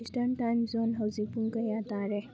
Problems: constant background noise, low volume